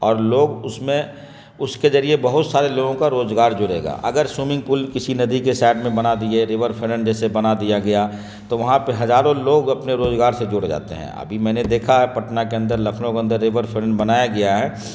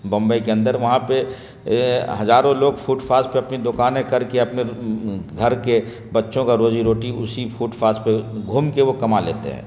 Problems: constant background noise